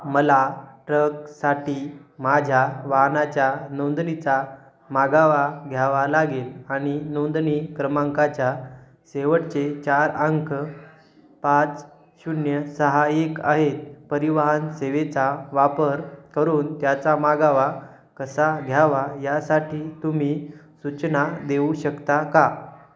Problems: none marked